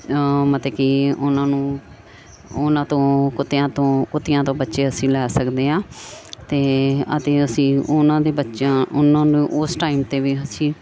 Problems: background sounds at intervals